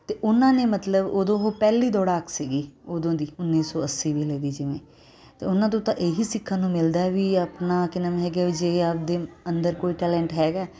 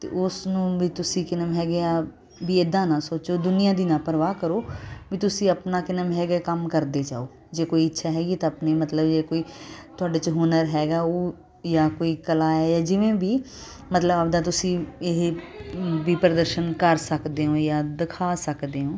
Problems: constant background noise